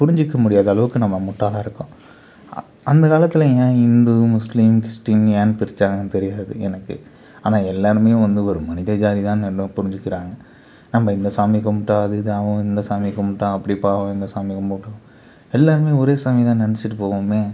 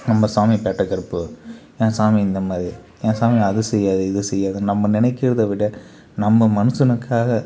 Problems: background sounds at intervals, background conversations at intervals